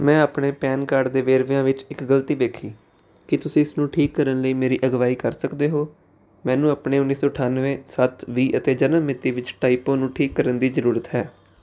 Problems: none marked